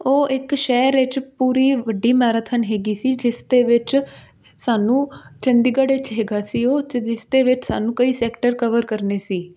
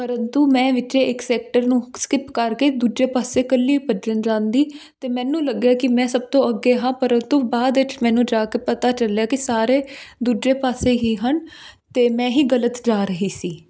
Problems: constant background noise